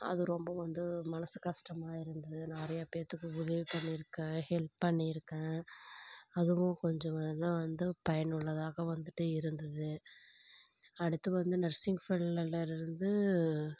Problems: background sounds at intervals, low volume